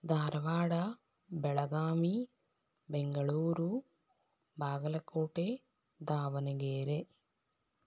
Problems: none marked